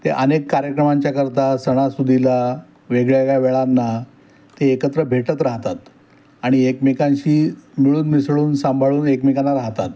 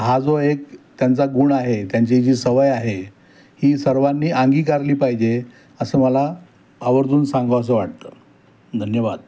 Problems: none marked